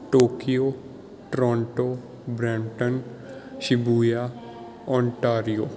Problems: background conversations at intervals